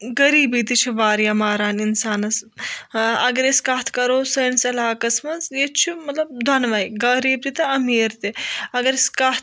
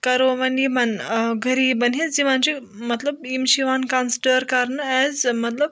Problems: none marked